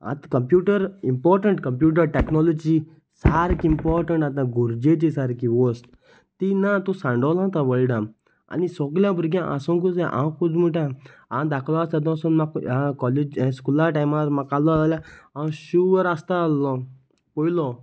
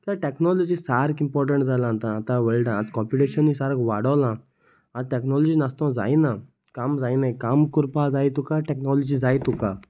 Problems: none marked